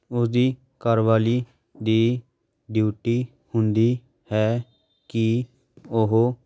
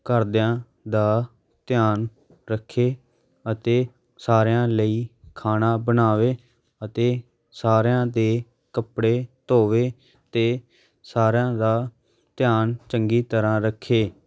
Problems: constant background noise, background conversations at intervals